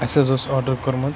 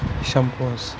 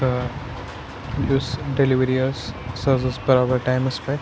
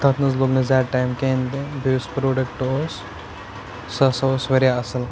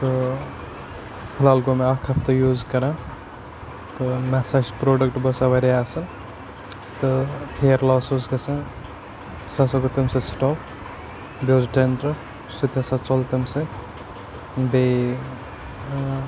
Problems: constant background noise, low volume